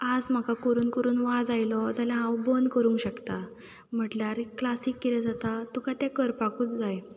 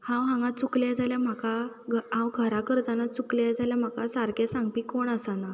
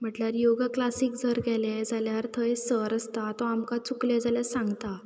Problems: background sounds at intervals